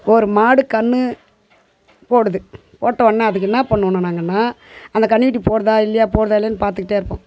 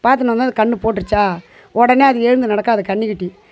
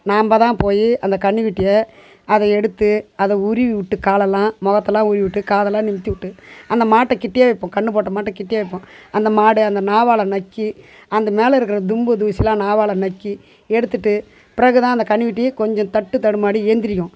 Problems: background conversations at intervals